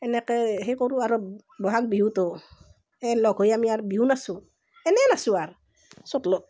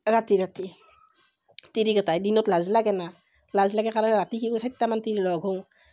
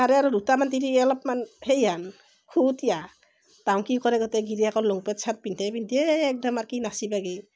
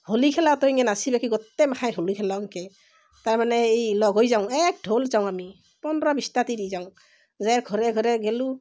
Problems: none marked